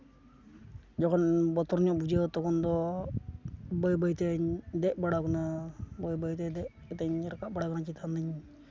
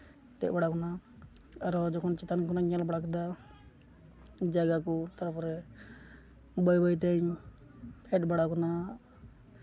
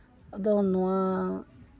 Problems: constant background noise